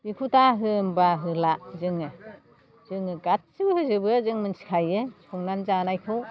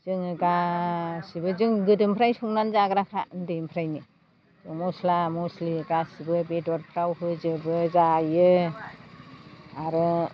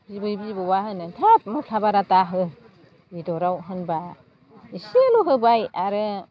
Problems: constant background noise